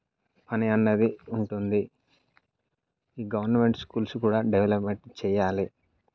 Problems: none marked